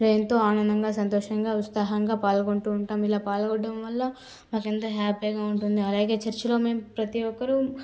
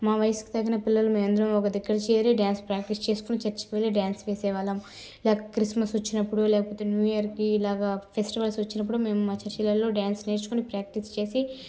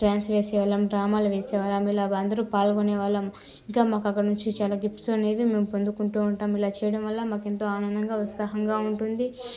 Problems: background conversations at intervals, low volume